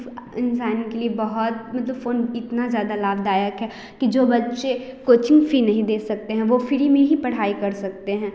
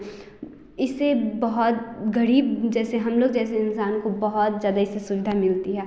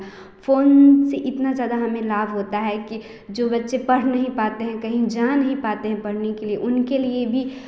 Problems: constant background noise